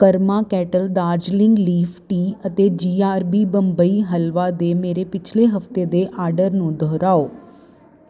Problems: constant background noise